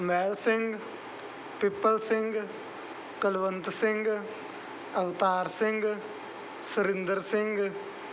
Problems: background sounds at intervals